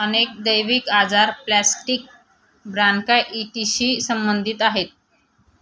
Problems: constant background noise